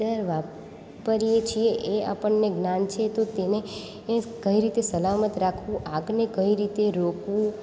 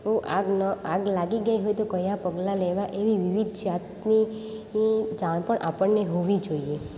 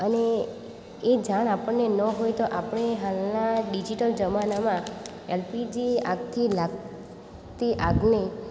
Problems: none marked